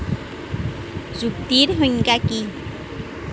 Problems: constant background noise